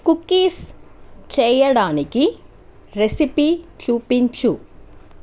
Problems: constant background noise